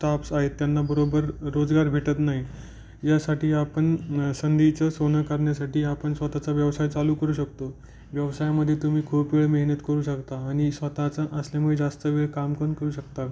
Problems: background sounds at intervals